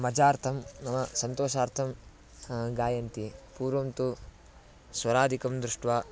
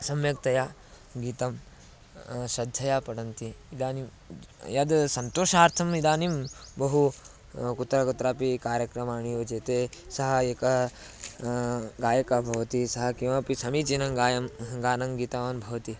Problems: constant background noise